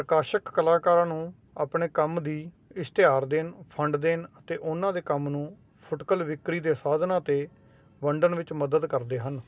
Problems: constant background noise